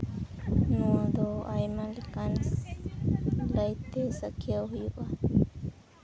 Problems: constant background noise